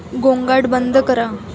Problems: constant background noise, continuous background conversations